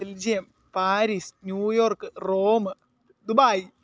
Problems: none marked